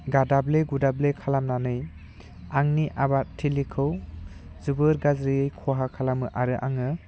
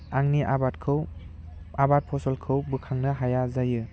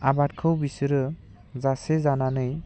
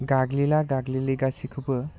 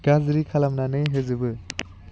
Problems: none marked